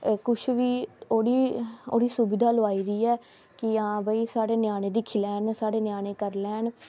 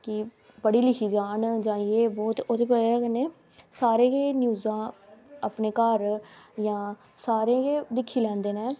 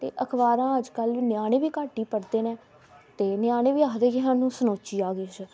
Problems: background sounds at intervals